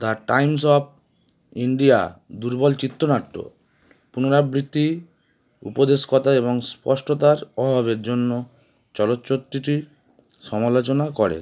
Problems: none marked